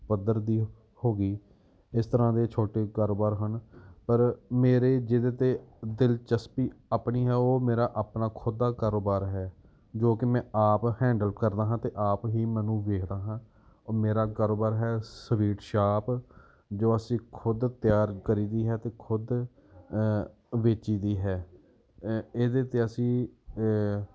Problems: background sounds at intervals